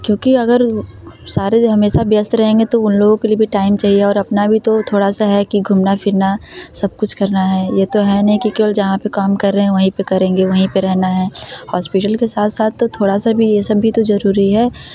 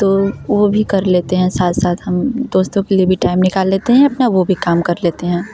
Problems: constant background noise, background conversations at intervals